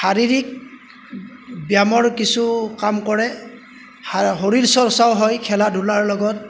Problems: background sounds at intervals